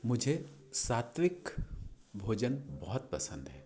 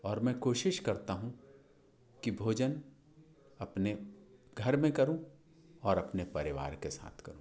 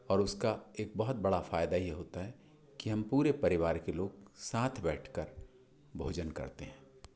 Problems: background sounds at intervals, echo